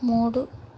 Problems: constant background noise